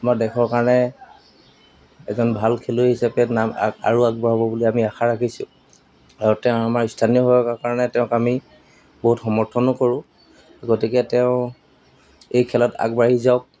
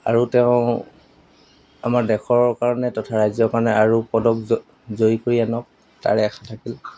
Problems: background sounds at intervals, background conversations at intervals